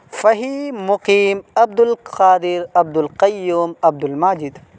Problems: none marked